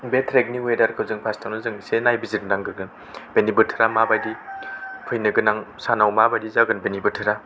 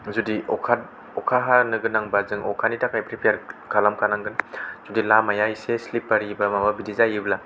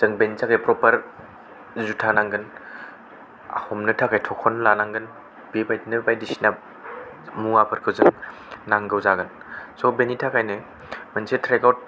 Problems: none marked